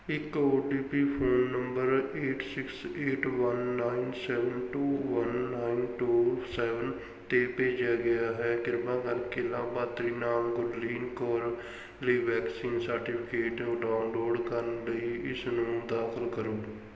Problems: background sounds at intervals